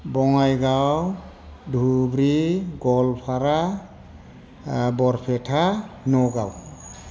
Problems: none marked